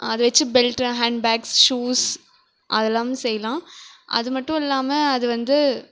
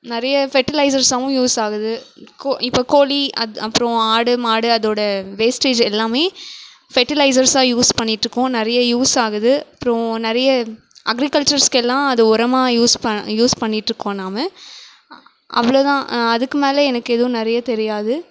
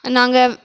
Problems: background sounds at intervals